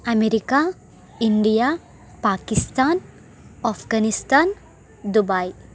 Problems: constant background noise